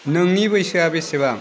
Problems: none marked